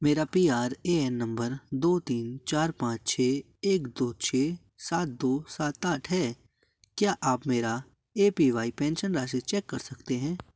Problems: background sounds at intervals